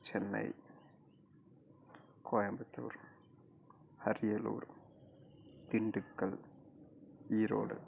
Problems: low volume